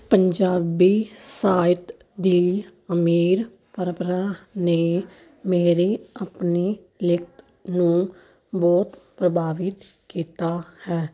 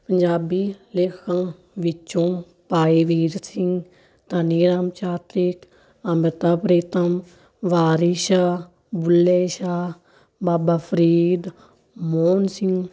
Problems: none marked